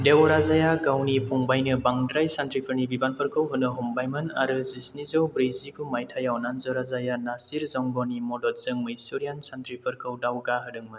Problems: low volume